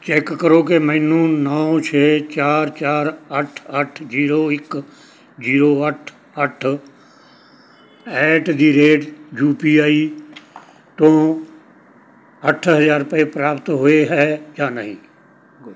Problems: none marked